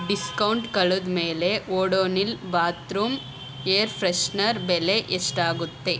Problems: background sounds at intervals